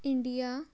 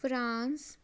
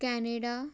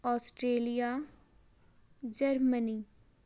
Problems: none marked